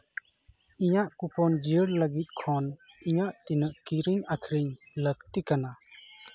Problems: constant background noise